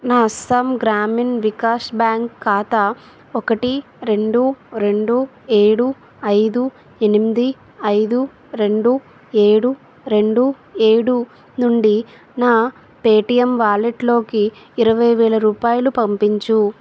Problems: constant background noise